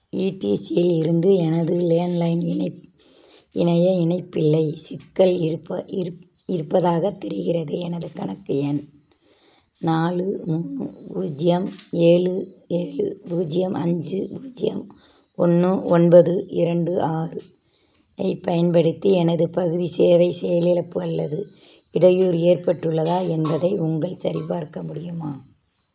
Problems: none marked